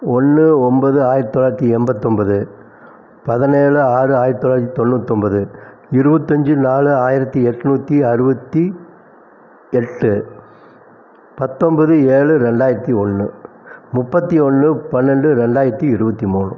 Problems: none marked